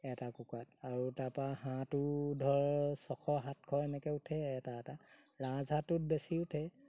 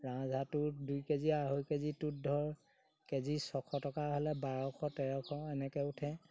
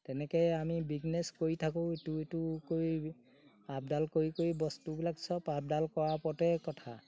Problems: background sounds at intervals